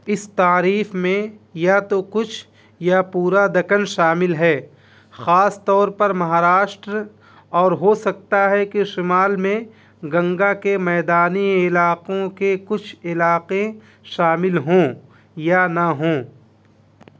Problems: constant background noise